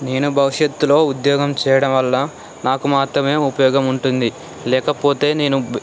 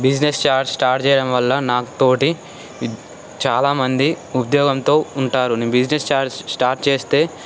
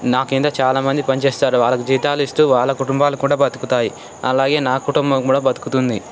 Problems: constant background noise